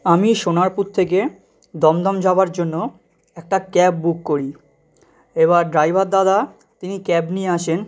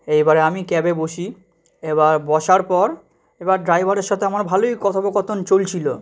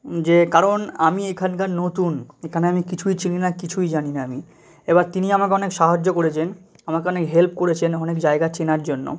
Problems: none marked